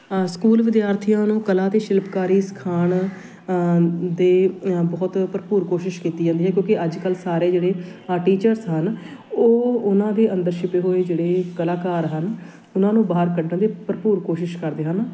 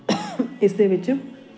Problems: constant background noise, background conversations at intervals